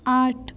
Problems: none marked